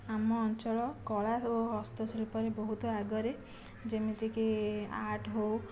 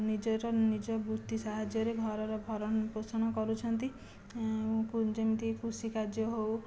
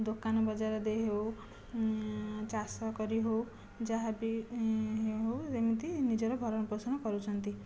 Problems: low volume